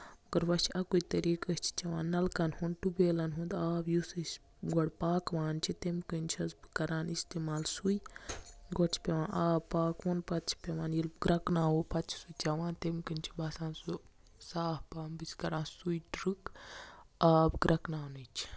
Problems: none marked